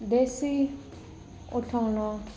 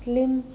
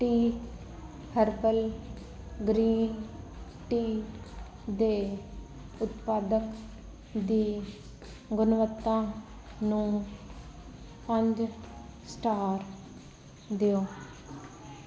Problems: none marked